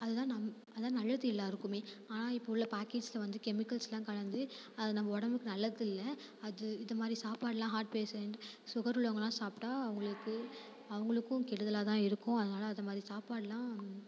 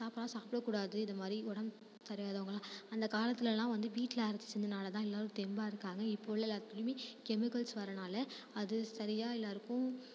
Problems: constant background noise